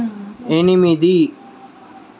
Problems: constant background noise, background conversations at intervals